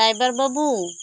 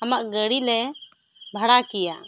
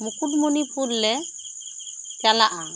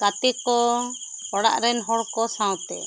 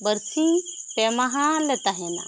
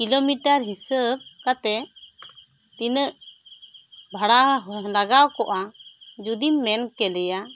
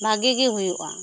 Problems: constant background noise